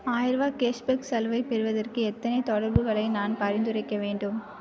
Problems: none marked